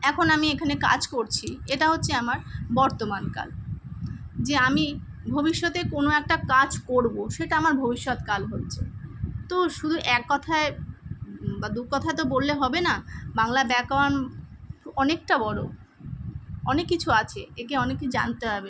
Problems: constant background noise